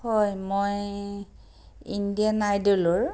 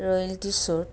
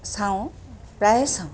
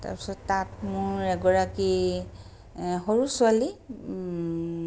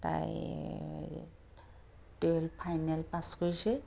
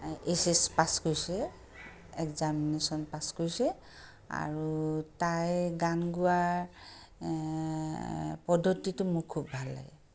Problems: none marked